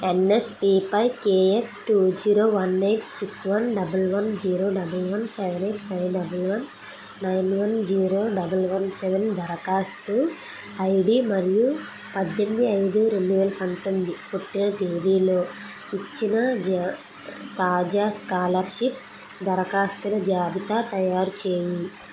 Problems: constant background noise